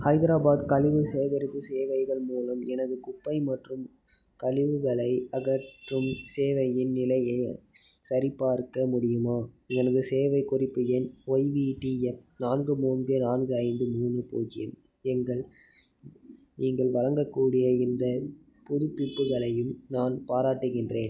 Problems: none marked